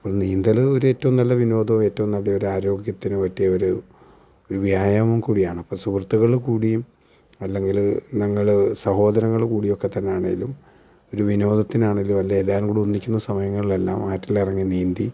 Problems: none marked